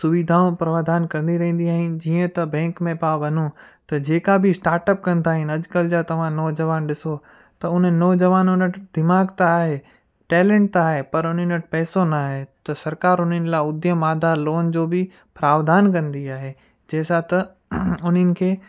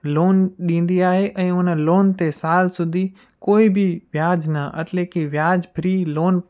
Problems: constant background noise, echo